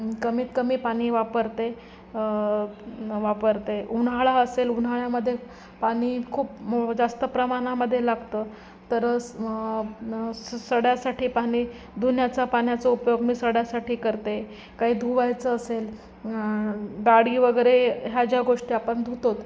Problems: constant background noise, background conversations at intervals